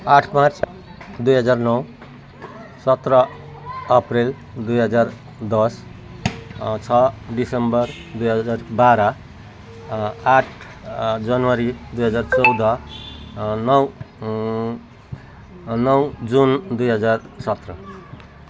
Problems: continuous background conversations